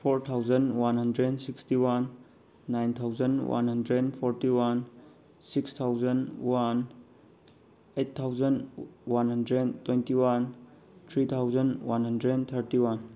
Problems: background sounds at intervals